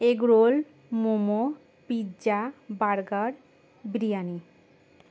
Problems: constant background noise